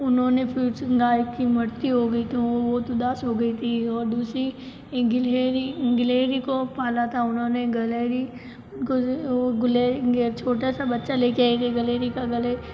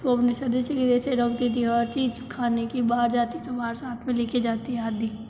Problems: low volume